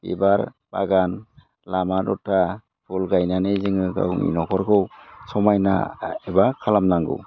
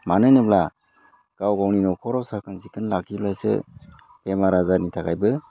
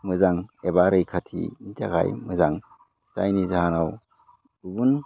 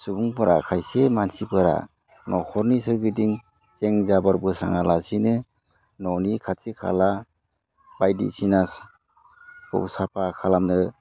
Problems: low volume